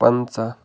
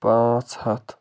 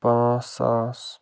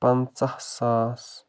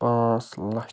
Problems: background sounds at intervals